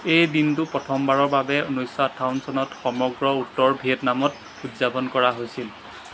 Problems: constant background noise